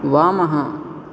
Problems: constant background noise